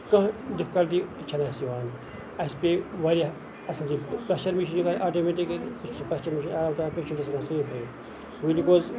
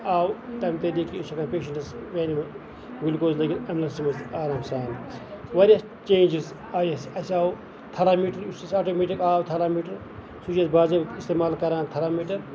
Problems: constant background noise, background conversations at intervals